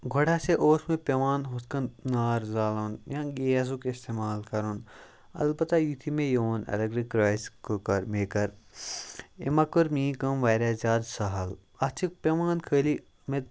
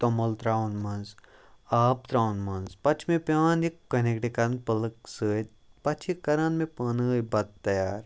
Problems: background sounds at intervals